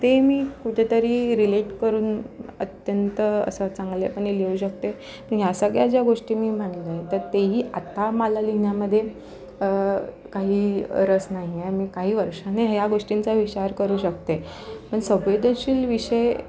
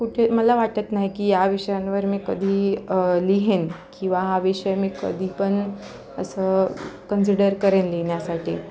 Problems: constant background noise, continuous background conversations